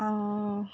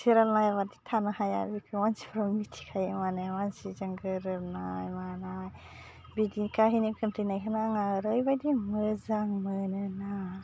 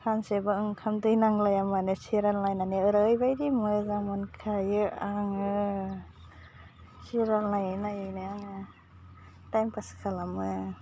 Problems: constant background noise